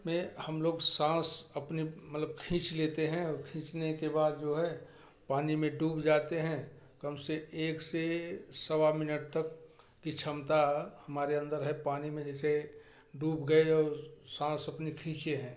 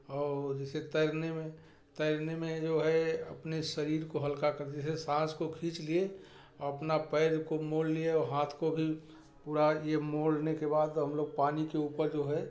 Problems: none marked